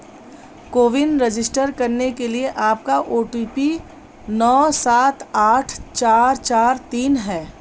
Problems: constant background noise